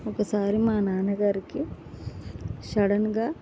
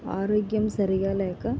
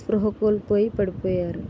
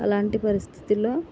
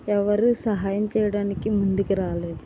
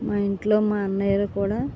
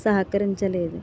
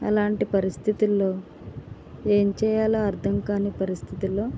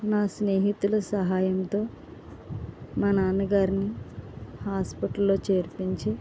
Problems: none marked